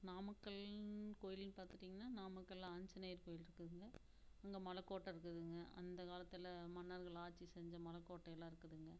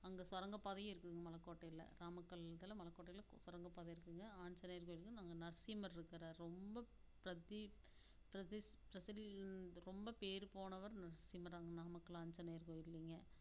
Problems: constant background noise, low volume